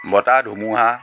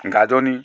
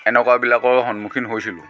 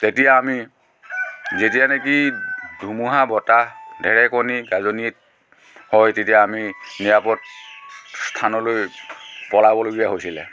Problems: constant background noise